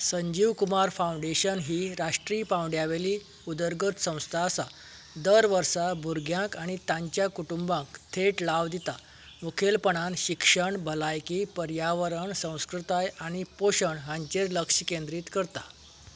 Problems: background sounds at intervals